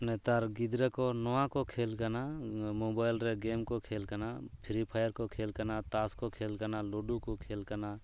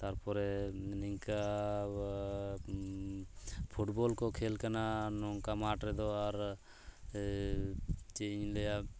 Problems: constant background noise